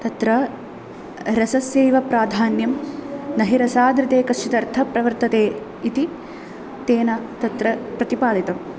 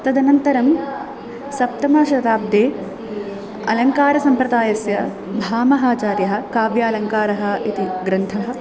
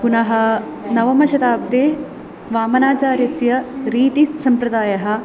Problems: constant background noise, continuous background conversations